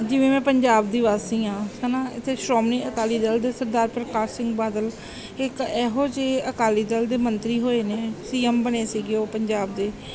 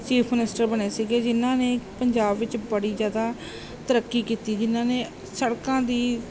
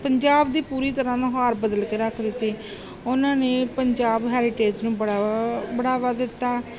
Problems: background sounds at intervals